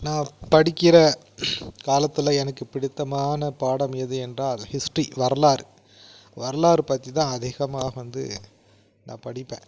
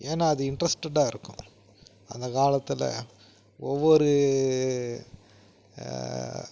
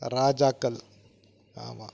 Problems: none marked